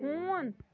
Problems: background sounds at intervals